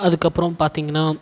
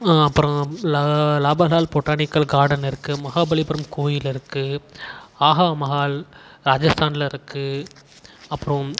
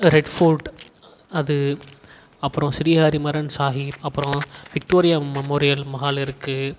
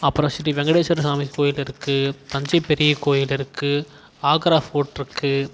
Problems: constant background noise